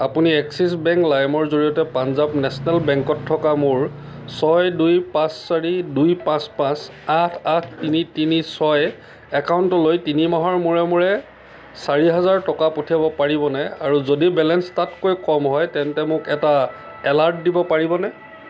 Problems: constant background noise